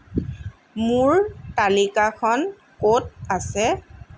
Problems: none marked